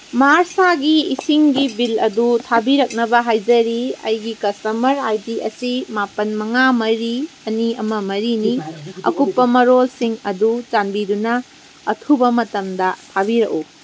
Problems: constant background noise